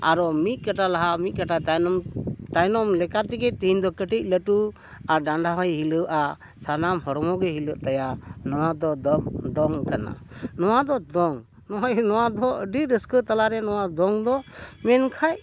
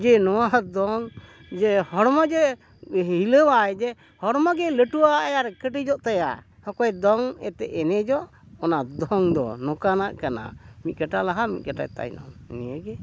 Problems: background sounds at intervals